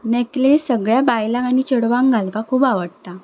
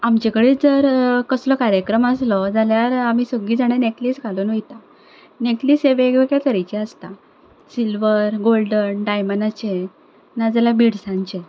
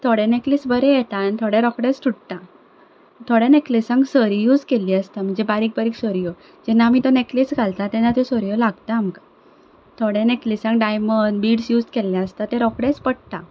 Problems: none marked